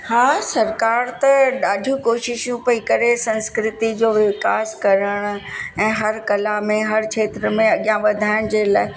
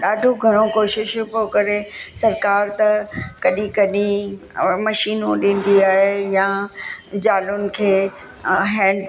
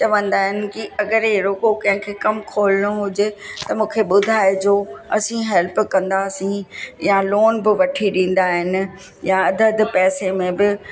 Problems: constant background noise, echo